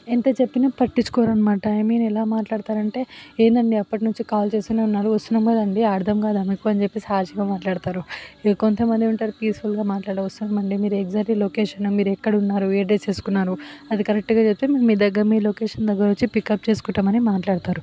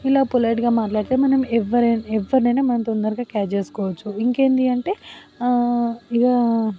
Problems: none marked